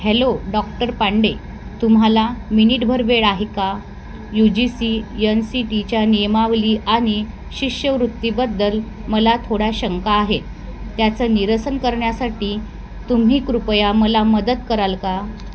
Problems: constant background noise